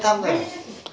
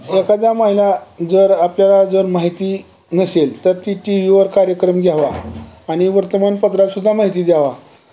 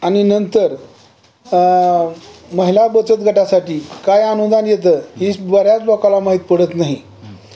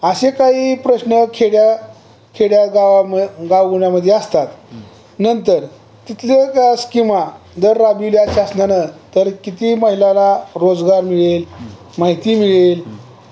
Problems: none marked